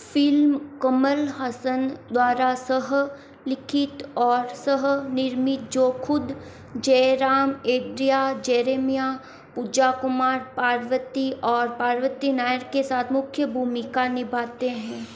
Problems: none marked